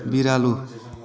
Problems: continuous background conversations